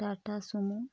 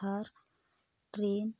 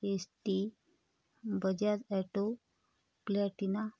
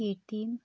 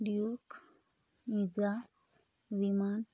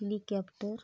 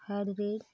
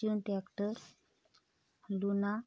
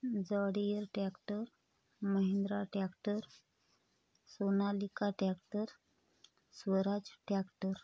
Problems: constant background noise